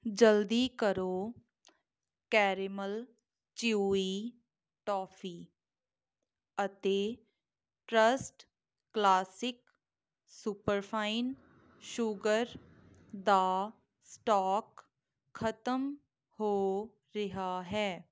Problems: none marked